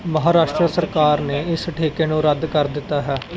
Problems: background conversations at intervals